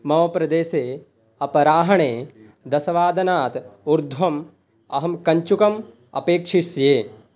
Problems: background conversations at intervals